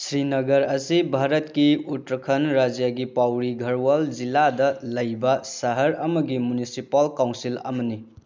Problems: none marked